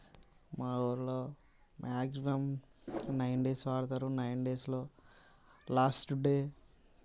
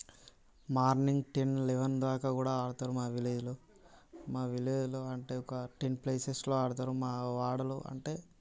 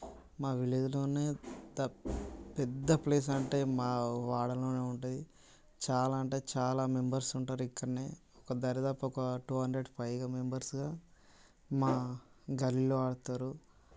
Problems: constant background noise